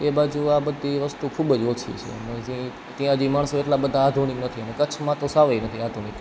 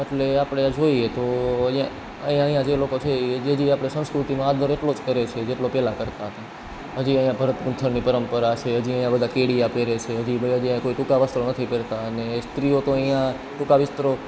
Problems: none marked